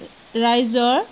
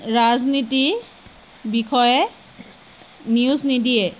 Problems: constant background noise